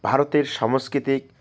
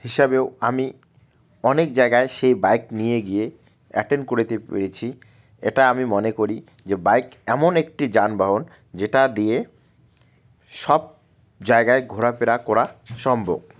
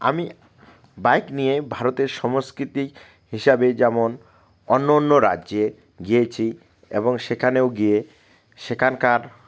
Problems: none marked